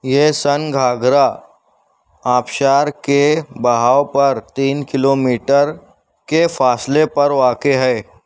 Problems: none marked